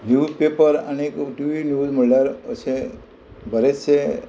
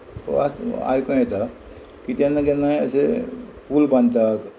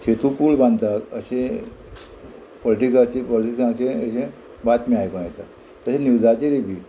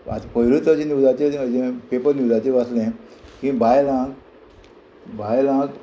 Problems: constant background noise